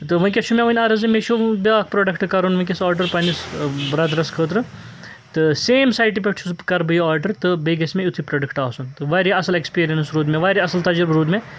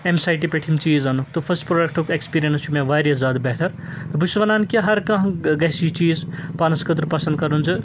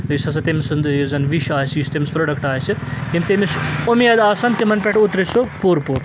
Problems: none marked